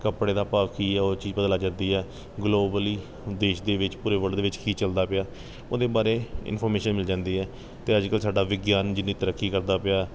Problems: none marked